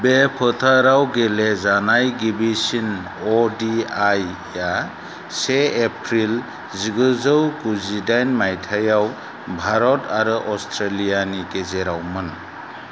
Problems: constant background noise